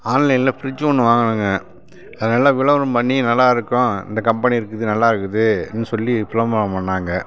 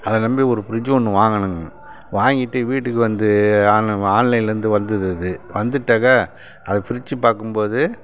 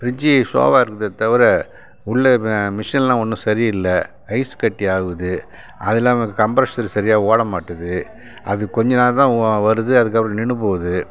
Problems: constant background noise